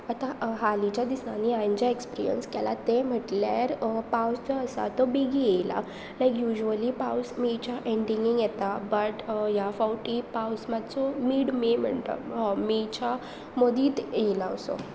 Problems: constant background noise